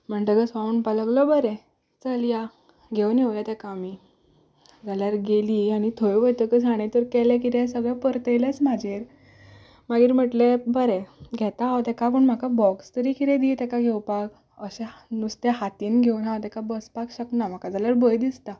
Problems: background sounds at intervals